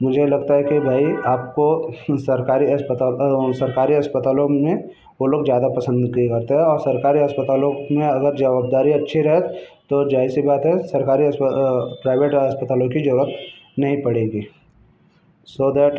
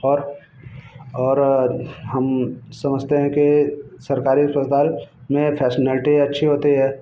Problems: constant background noise, background conversations at intervals